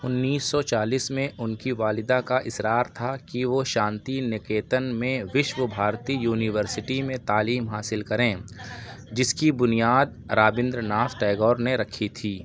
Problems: none marked